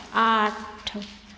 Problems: none marked